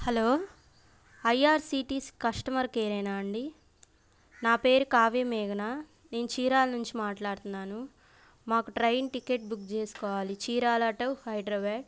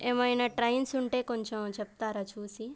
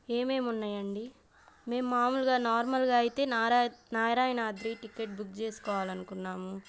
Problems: background sounds at intervals